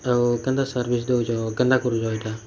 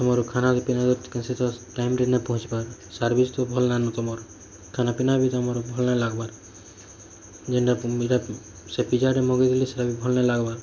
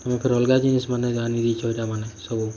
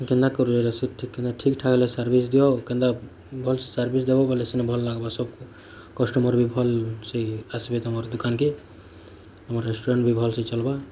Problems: constant background noise